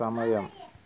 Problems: background conversations at intervals, low volume